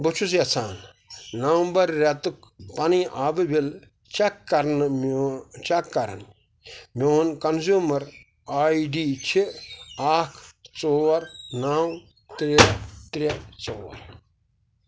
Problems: background sounds at intervals